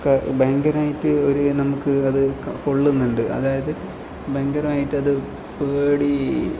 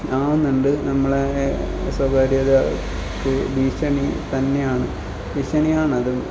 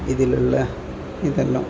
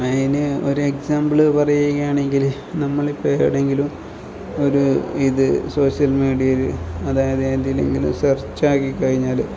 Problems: background sounds at intervals, low volume